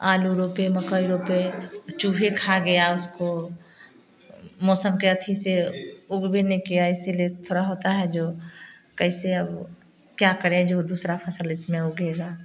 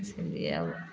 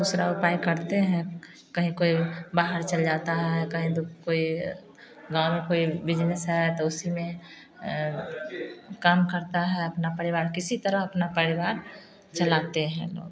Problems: constant background noise